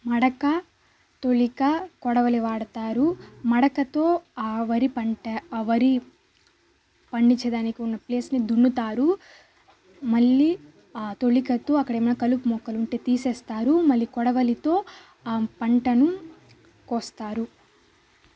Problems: constant background noise